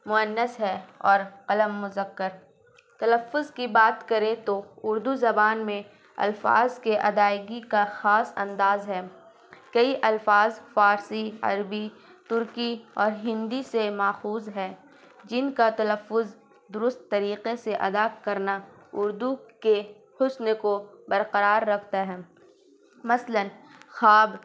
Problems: constant background noise